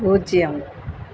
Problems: constant background noise